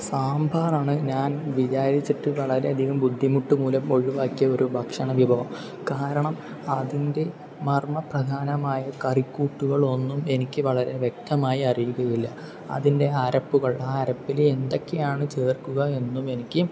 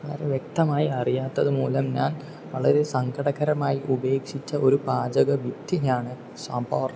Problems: constant background noise